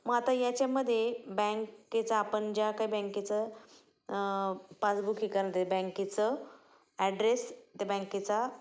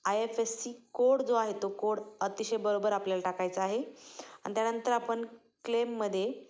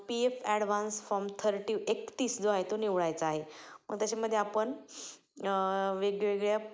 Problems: background sounds at intervals, echo